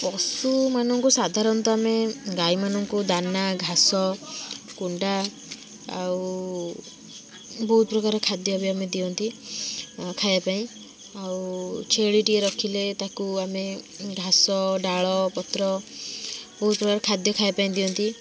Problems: constant background noise, continuous background conversations